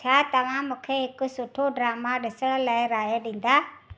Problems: none marked